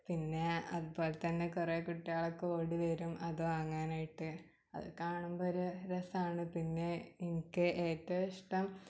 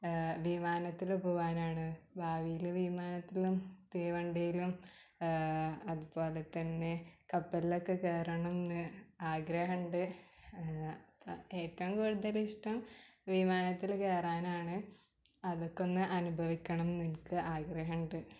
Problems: background sounds at intervals, low volume